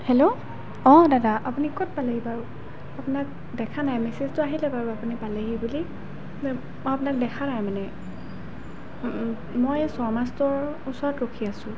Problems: constant background noise